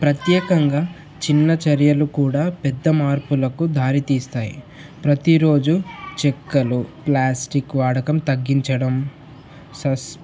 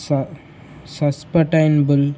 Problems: none marked